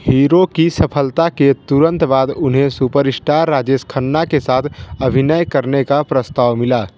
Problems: constant background noise, background conversations at intervals